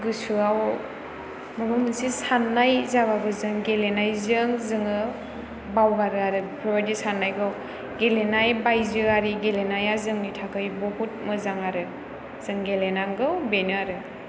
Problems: background sounds at intervals